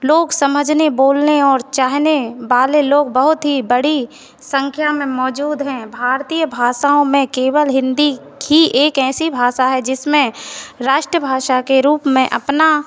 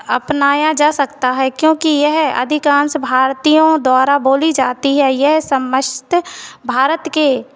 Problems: constant background noise